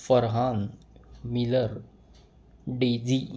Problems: none marked